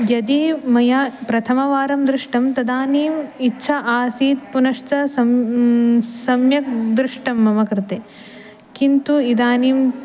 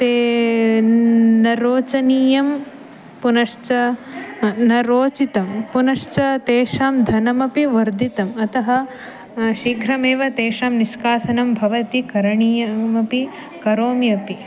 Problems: background sounds at intervals